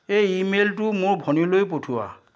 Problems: constant background noise